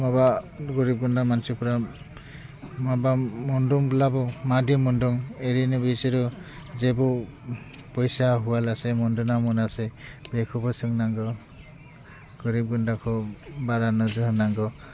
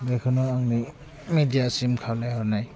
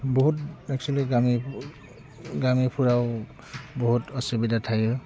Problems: constant background noise